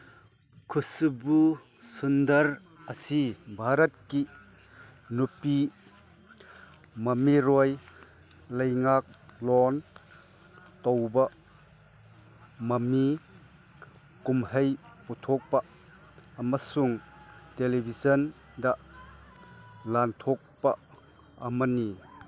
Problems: background sounds at intervals, background conversations at intervals